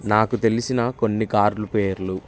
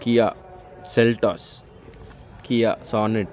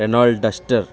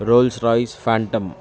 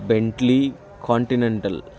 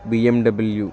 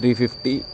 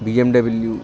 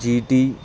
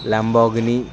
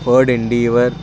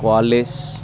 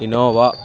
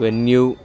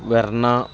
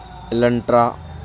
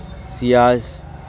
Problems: background sounds at intervals, continuous background conversations